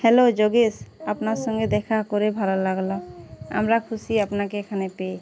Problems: none marked